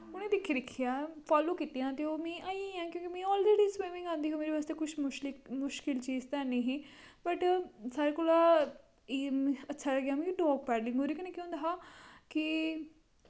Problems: constant background noise